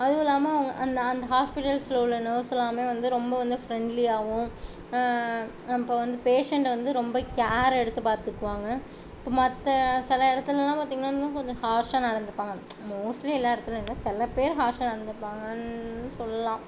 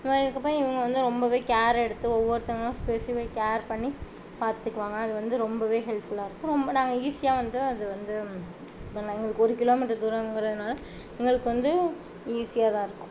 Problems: constant background noise